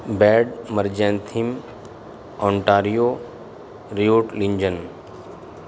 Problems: constant background noise